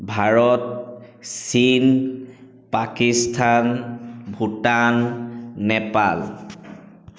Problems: echo